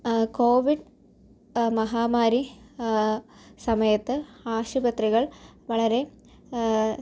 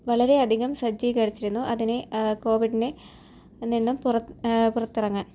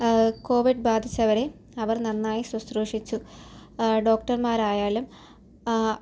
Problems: low volume